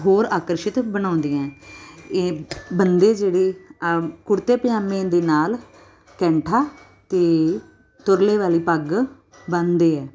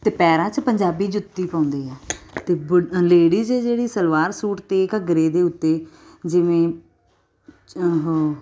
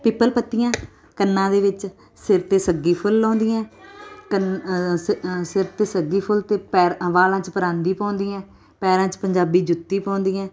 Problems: none marked